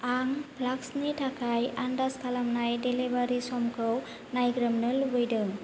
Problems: none marked